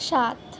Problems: none marked